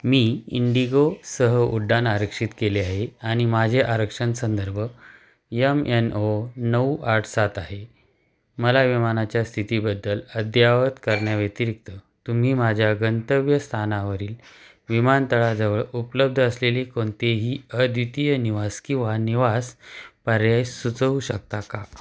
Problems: background sounds at intervals